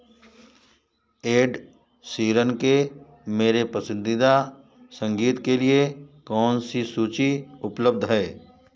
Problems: constant background noise